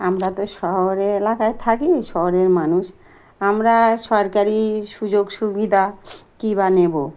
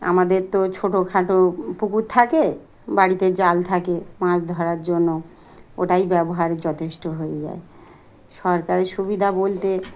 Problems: none marked